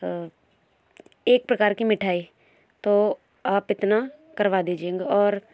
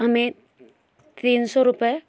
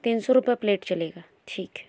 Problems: background sounds at intervals, background conversations at intervals